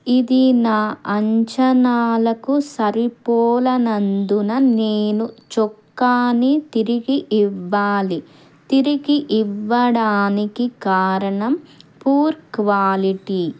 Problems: background sounds at intervals